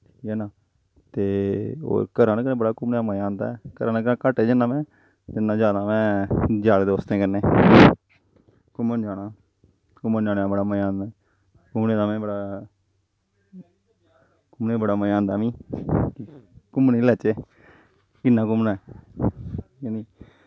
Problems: low volume